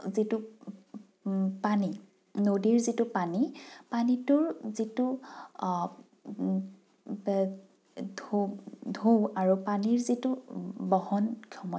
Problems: none marked